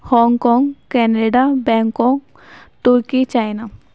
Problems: none marked